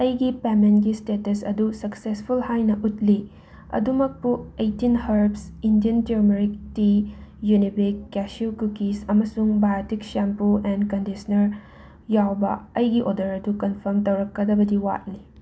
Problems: background sounds at intervals